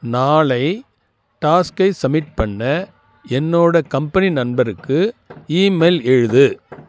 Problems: none marked